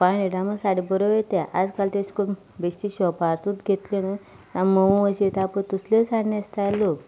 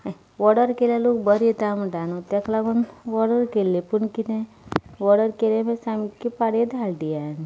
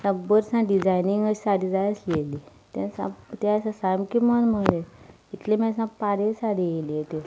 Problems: none marked